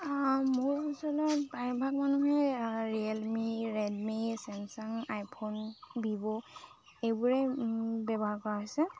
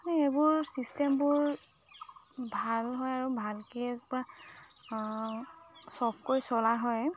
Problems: constant background noise, background conversations at intervals